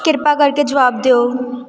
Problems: background sounds at intervals